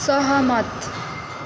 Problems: constant background noise